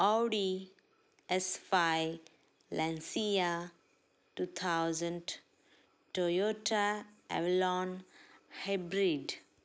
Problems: background sounds at intervals, echo